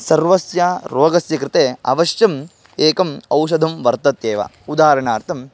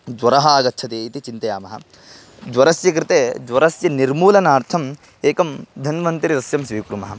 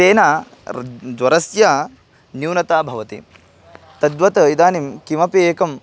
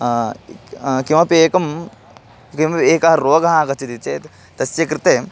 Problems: constant background noise